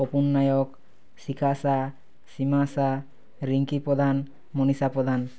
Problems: none marked